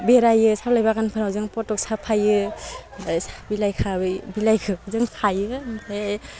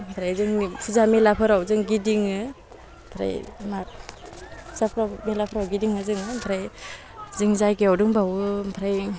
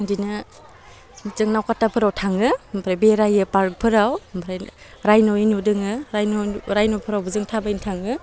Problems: none marked